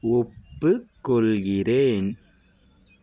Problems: none marked